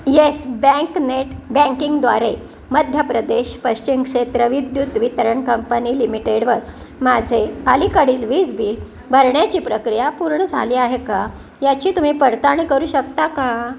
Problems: none marked